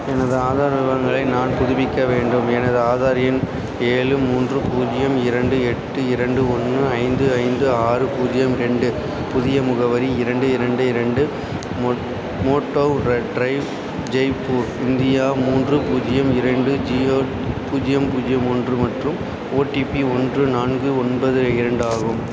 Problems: constant background noise